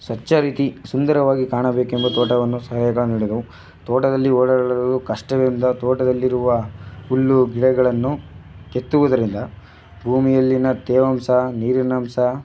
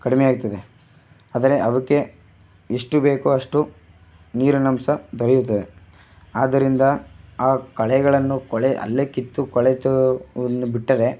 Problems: background sounds at intervals